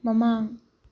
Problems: low volume